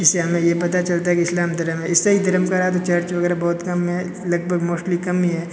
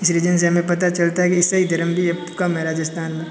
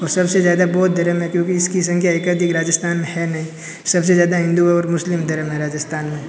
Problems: constant background noise, continuous background conversations